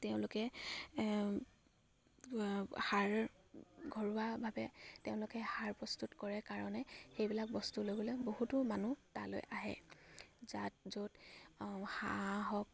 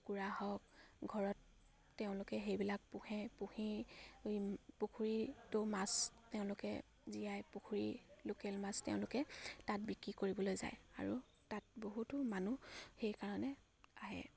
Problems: none marked